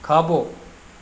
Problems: constant background noise, echo